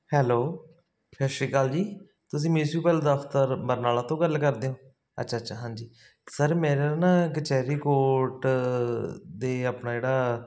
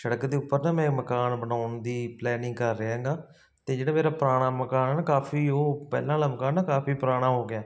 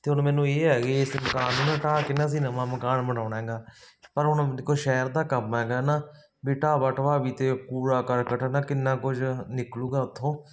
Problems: constant background noise